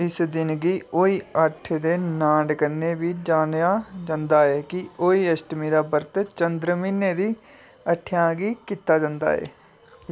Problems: background sounds at intervals